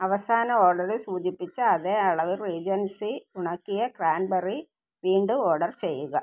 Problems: none marked